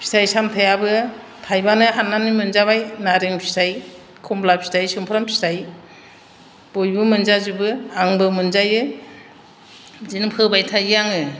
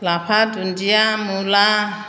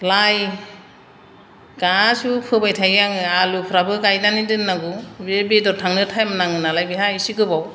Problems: none marked